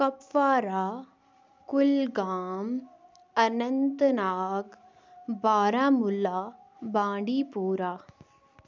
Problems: none marked